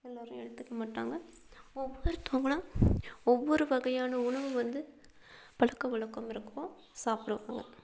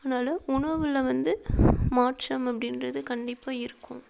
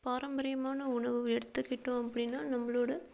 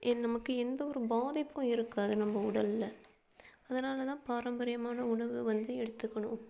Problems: background sounds at intervals, low volume